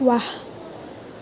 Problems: constant background noise